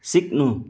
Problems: none marked